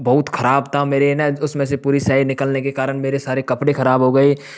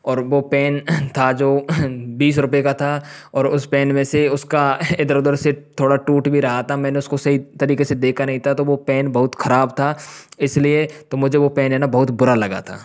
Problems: background sounds at intervals